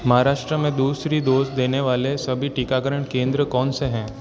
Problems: constant background noise, echo